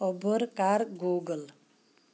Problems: constant background noise